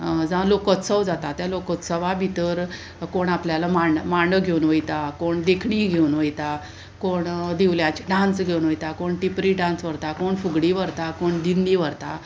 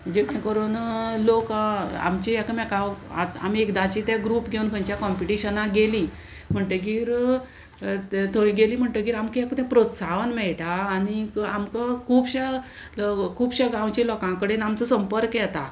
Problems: constant background noise